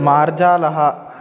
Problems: continuous background conversations